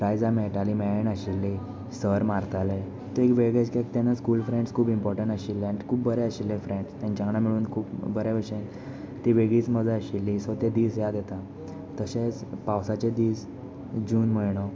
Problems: none marked